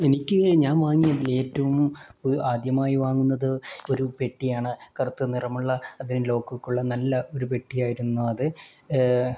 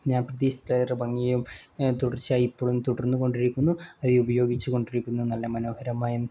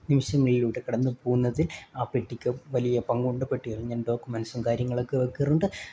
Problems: none marked